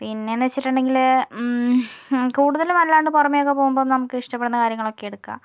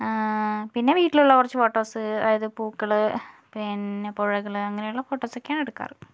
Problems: none marked